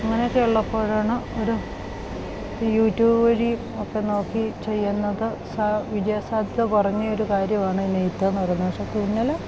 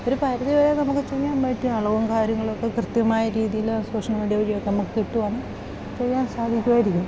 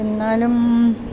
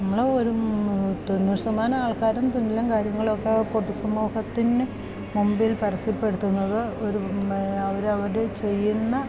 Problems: constant background noise